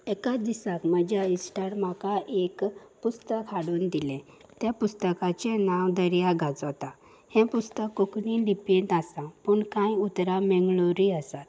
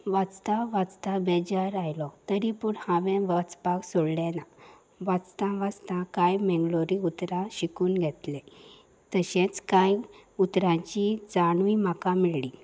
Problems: background sounds at intervals